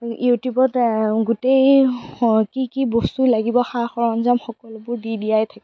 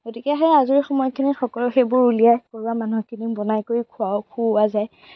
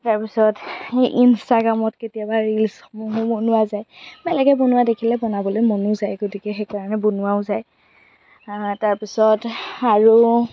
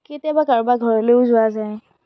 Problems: background sounds at intervals, background conversations at intervals